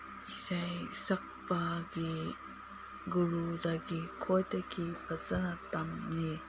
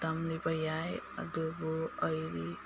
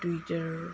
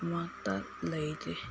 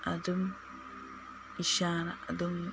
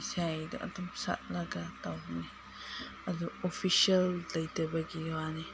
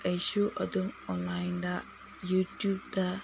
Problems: background sounds at intervals, low volume